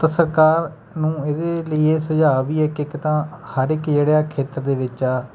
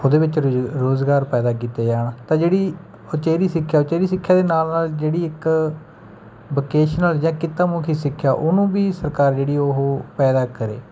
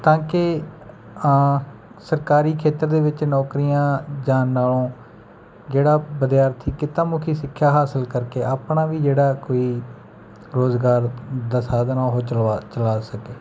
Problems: background sounds at intervals